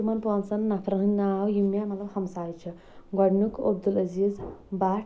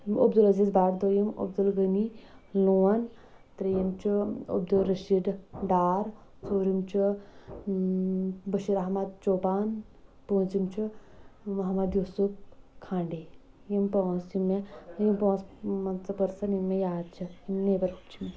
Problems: background sounds at intervals, background conversations at intervals